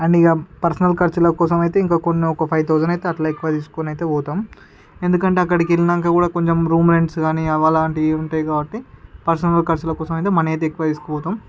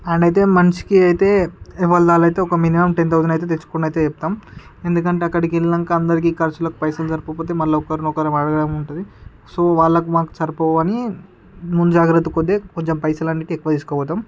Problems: background sounds at intervals, background conversations at intervals